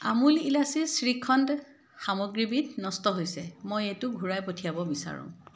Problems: none marked